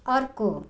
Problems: none marked